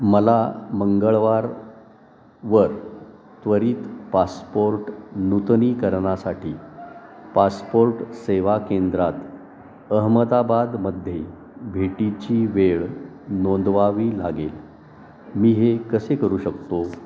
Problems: constant background noise, background conversations at intervals, echo